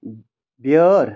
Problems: constant background noise